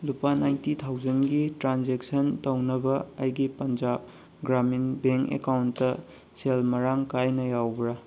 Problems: constant background noise